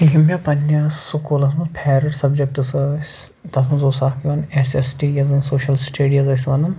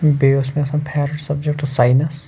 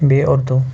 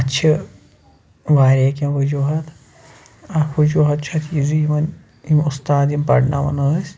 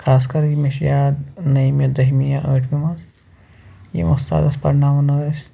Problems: none marked